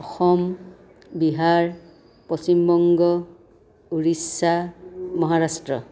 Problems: background conversations at intervals